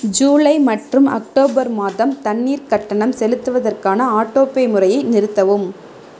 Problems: background sounds at intervals